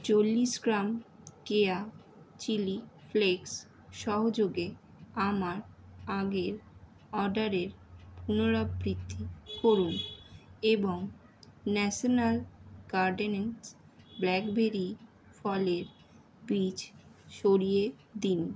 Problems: constant background noise